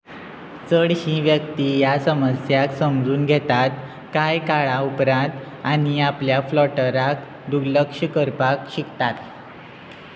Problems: constant background noise